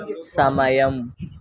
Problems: background sounds at intervals